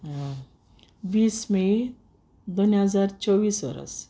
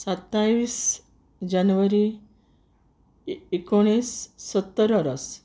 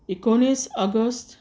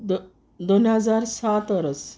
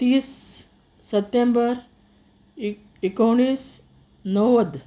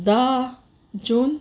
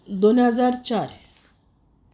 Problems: constant background noise